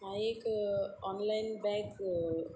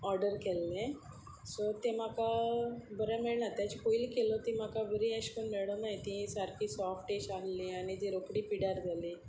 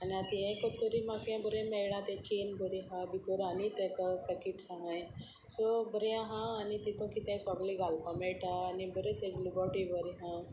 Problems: constant background noise